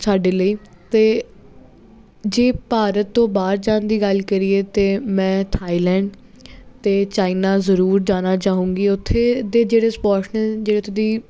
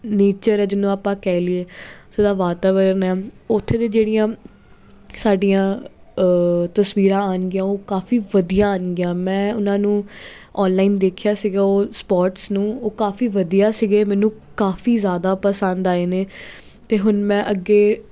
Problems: constant background noise